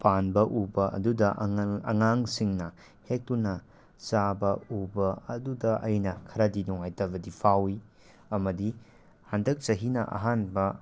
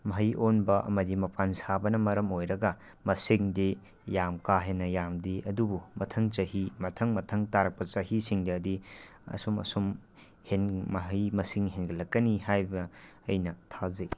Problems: none marked